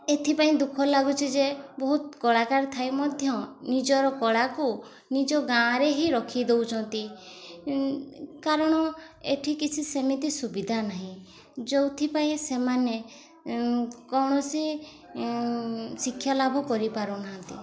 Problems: none marked